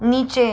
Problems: constant background noise